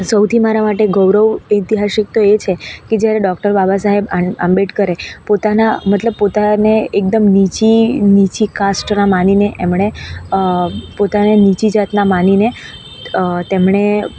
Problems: constant background noise